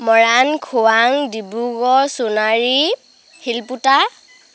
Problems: none marked